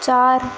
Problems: constant background noise